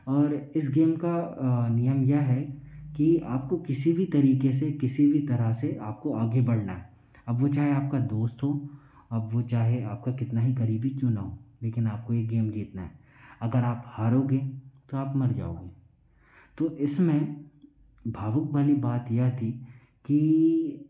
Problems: low volume